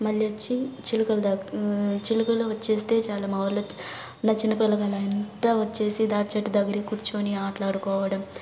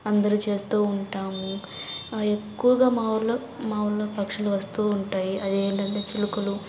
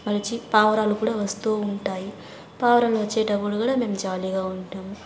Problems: constant background noise, background conversations at intervals